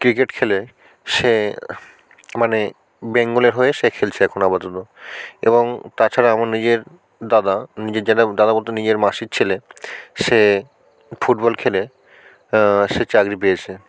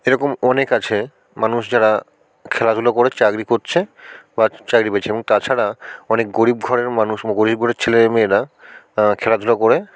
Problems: none marked